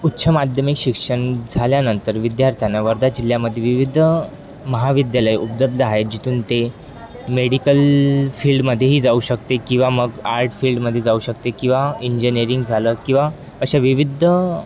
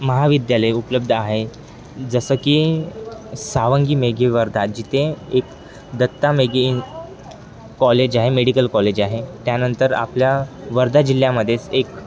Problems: constant background noise, continuous background conversations